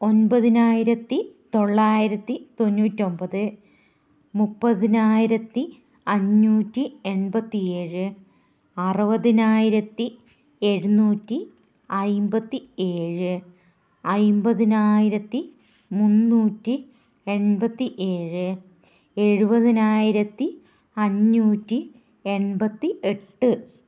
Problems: none marked